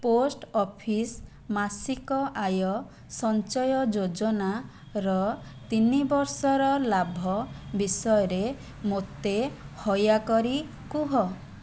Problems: background sounds at intervals